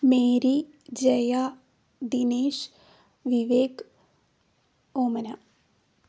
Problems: low volume